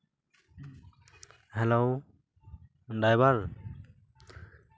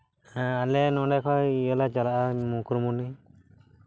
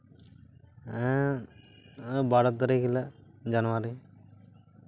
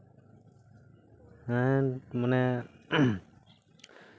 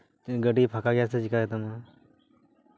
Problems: background sounds at intervals